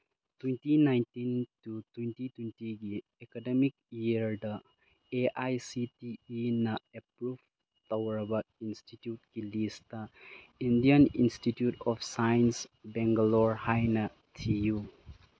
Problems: none marked